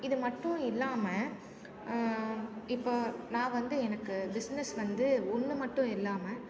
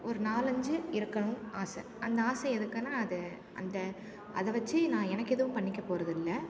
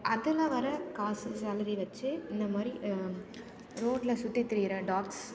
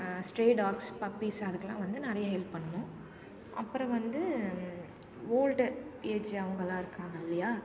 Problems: none marked